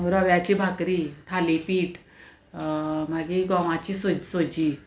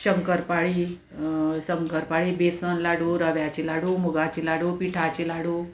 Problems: constant background noise, continuous background conversations